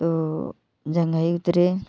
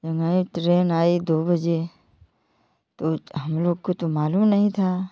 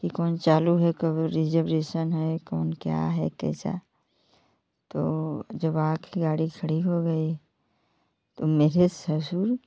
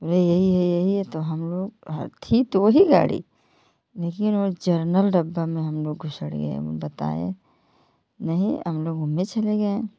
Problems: none marked